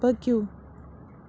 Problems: constant background noise